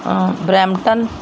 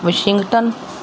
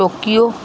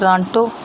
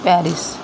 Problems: none marked